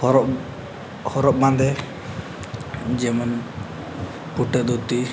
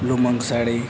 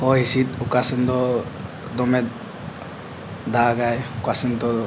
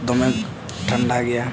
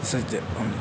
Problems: none marked